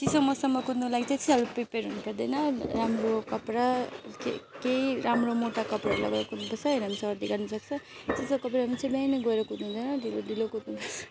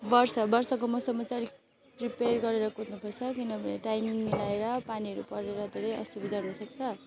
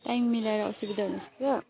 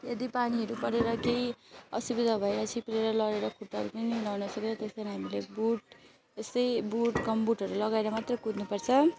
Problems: none marked